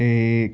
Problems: none marked